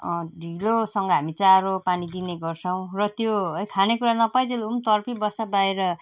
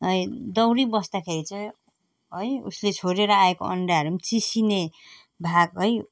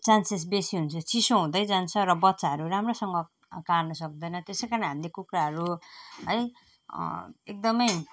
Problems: none marked